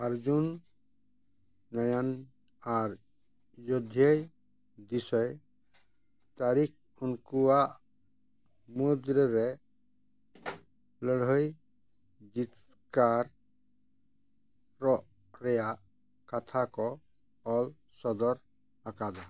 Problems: none marked